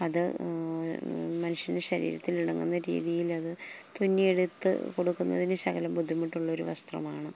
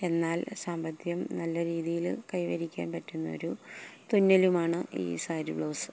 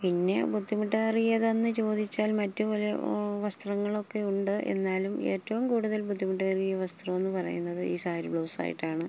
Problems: none marked